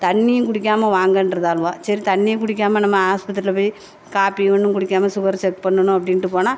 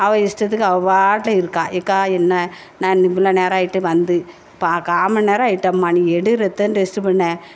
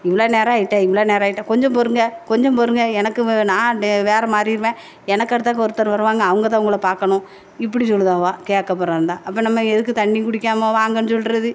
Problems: none marked